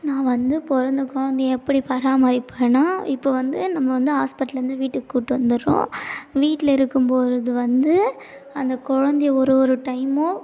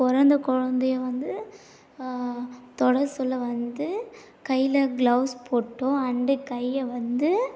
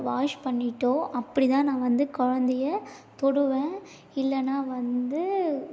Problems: none marked